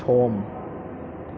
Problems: constant background noise